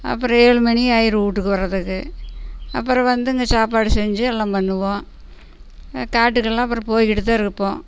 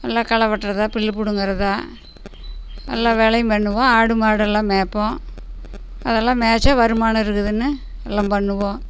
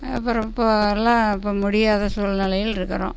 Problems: none marked